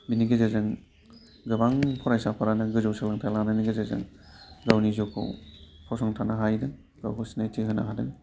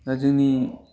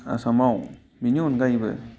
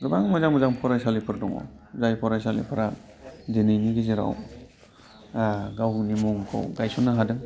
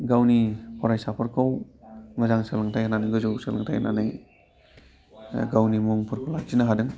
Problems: constant background noise